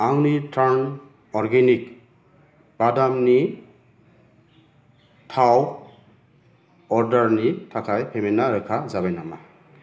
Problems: low volume